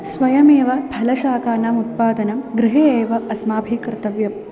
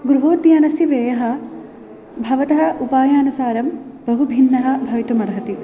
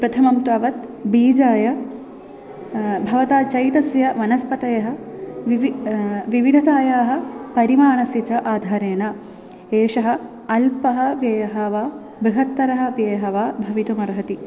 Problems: background sounds at intervals